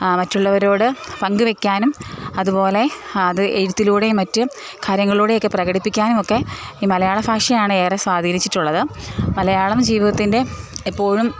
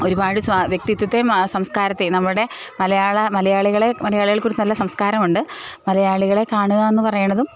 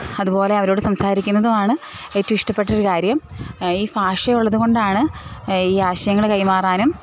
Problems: background sounds at intervals